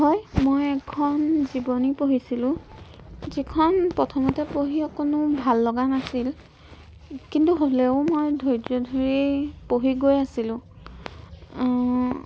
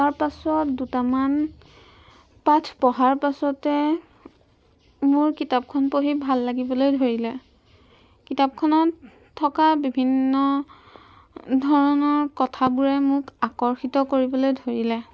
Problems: background sounds at intervals